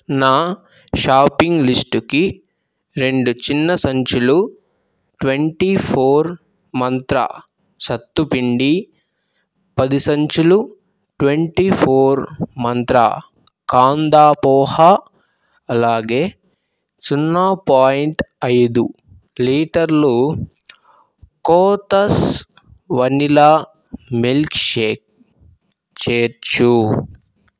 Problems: background sounds at intervals